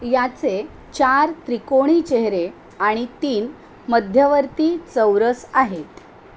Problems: none marked